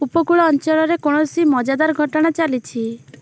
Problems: constant background noise